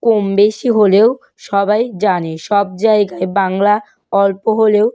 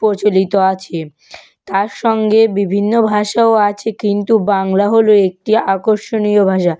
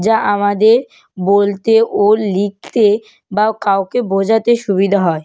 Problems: none marked